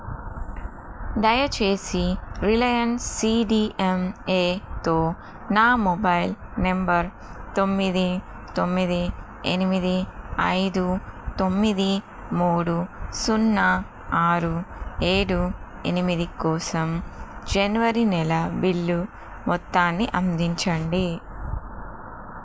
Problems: constant background noise